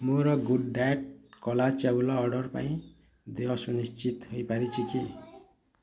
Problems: constant background noise, continuous background conversations